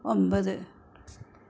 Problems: none marked